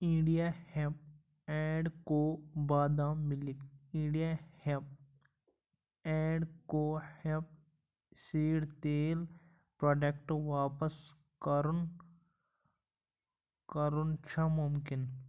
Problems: none marked